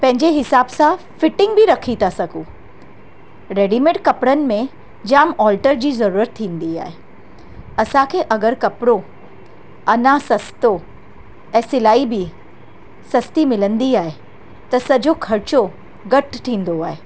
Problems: constant background noise